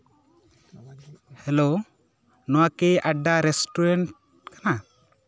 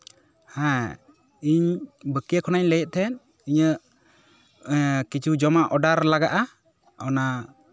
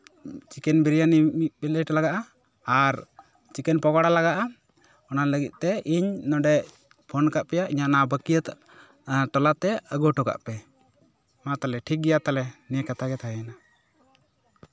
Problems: background conversations at intervals